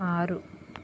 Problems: constant background noise